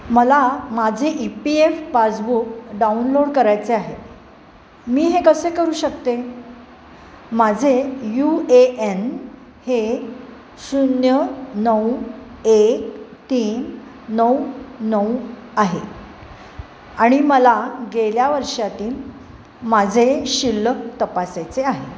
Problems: constant background noise